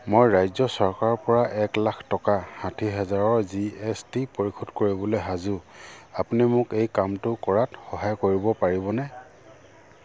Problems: low volume